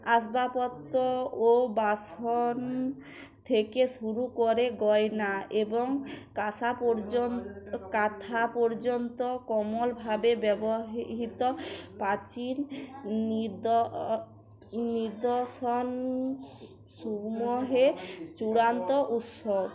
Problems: continuous background conversations